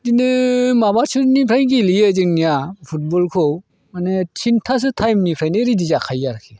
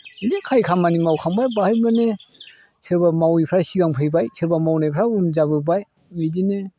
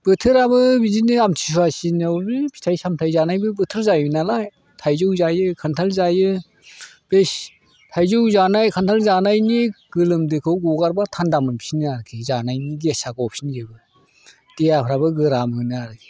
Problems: none marked